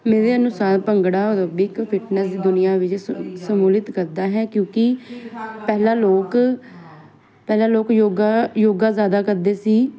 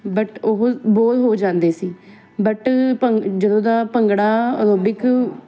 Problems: continuous background conversations